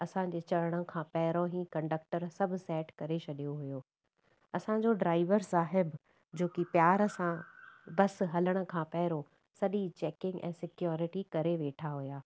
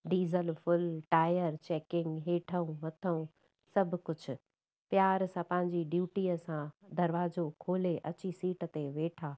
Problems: background sounds at intervals